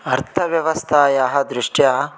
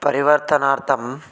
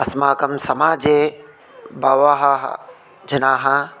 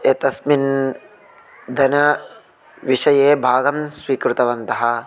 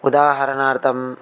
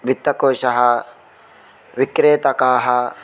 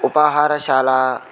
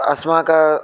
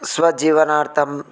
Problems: constant background noise, continuous background conversations